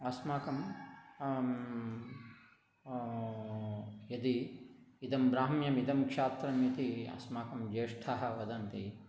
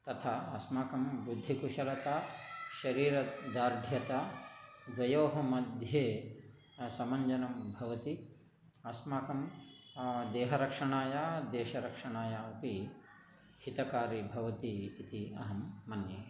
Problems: background conversations at intervals, low volume